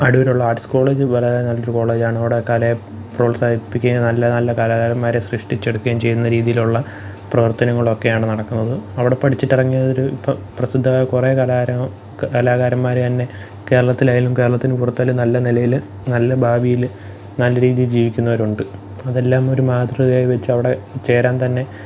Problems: background sounds at intervals